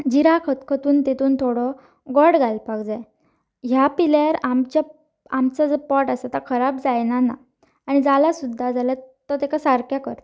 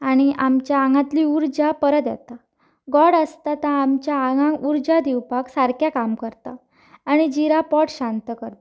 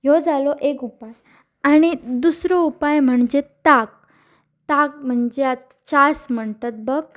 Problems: none marked